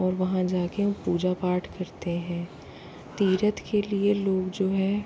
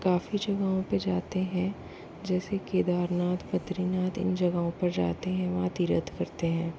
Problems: constant background noise, low volume